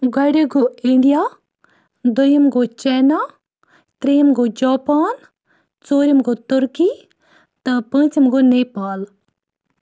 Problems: none marked